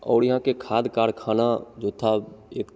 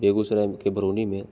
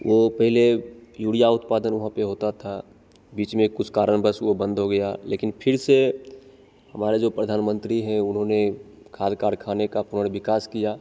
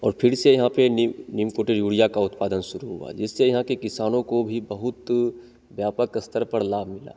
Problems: constant background noise, echo